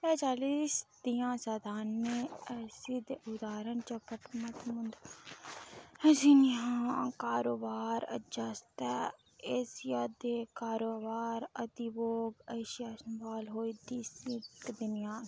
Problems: background sounds at intervals